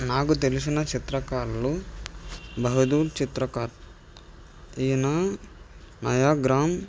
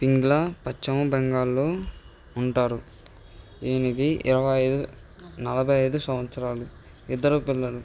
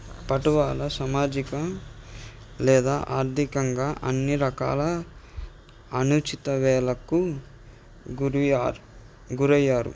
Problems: background sounds at intervals